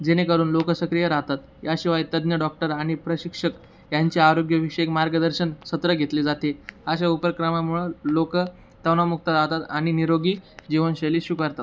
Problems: constant background noise